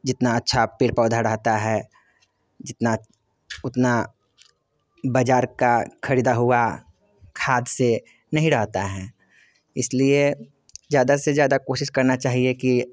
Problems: none marked